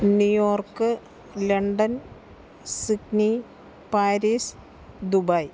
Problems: background sounds at intervals